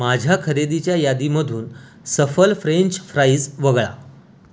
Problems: none marked